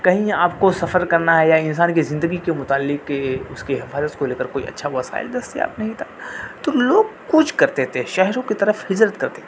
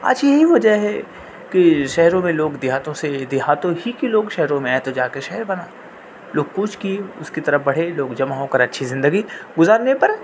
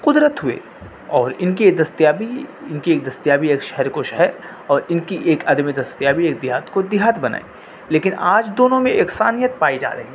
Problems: constant background noise